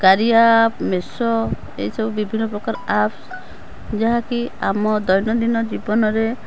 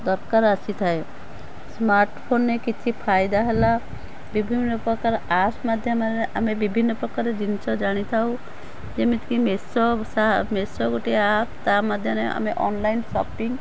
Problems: none marked